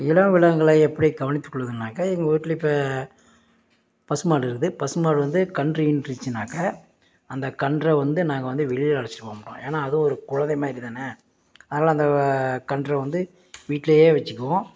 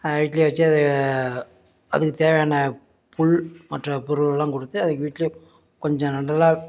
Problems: none marked